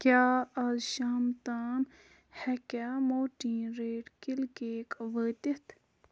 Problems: background sounds at intervals